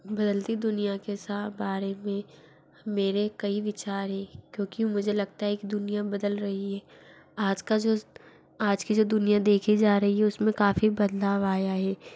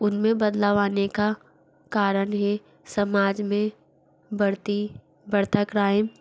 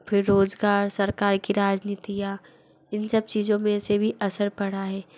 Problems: none marked